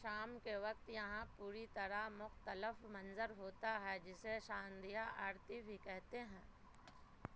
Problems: constant background noise